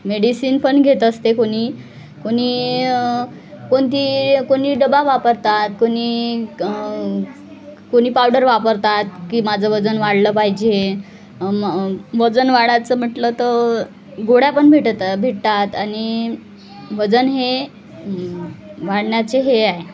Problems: constant background noise, background conversations at intervals